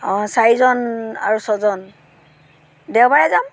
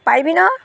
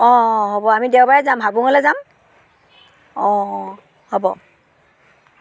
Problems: none marked